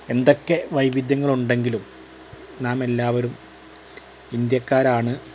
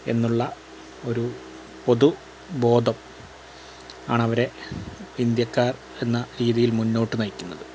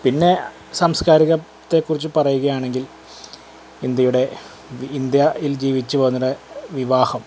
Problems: constant background noise